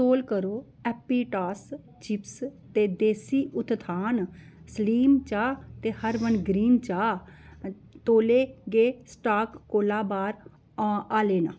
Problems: background sounds at intervals